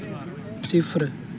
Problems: none marked